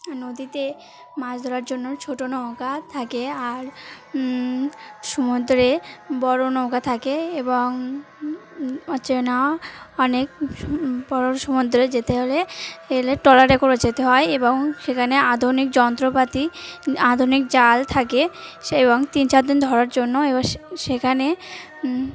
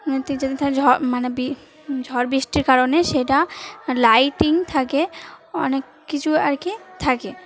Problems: none marked